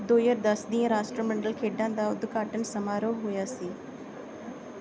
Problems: none marked